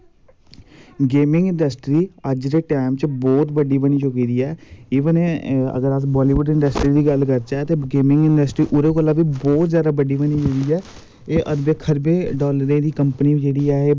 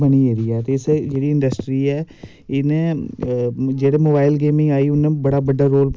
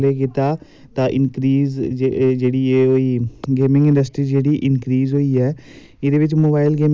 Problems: none marked